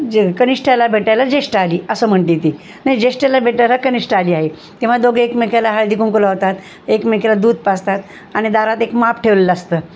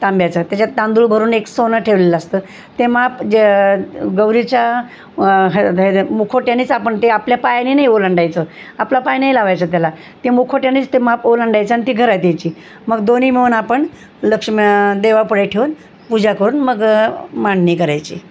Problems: none marked